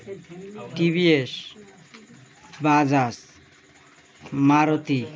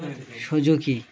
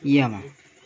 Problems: continuous background conversations